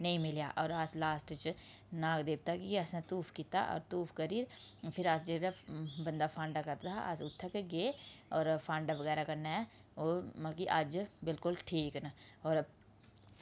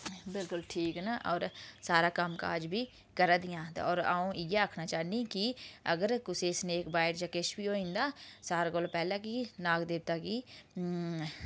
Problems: background sounds at intervals